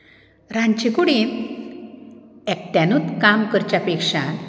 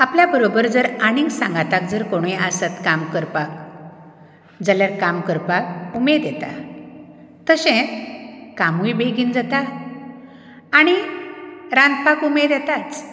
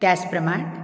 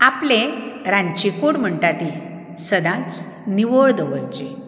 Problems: background sounds at intervals